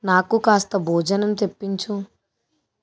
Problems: none marked